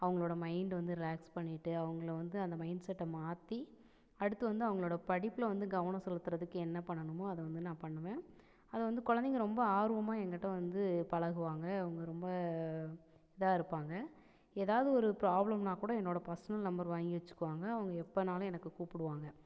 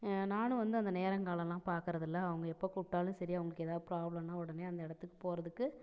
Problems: none marked